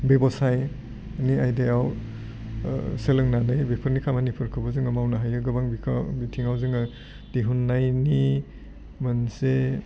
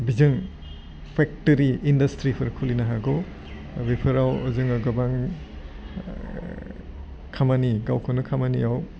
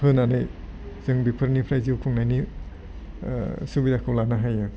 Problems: low volume